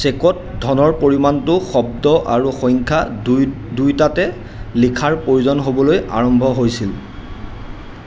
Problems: constant background noise